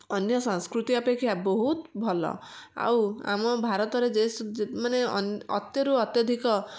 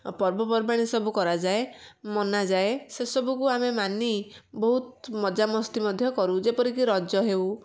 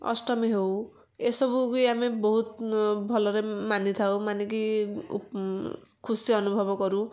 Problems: none marked